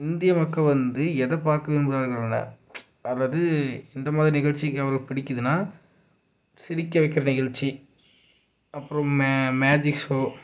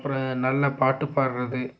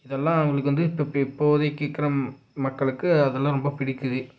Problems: low volume